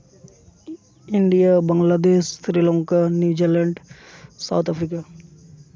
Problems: constant background noise